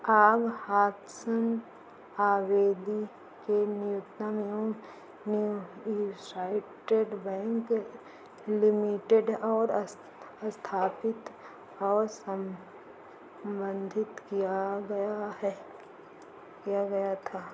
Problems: constant background noise, low volume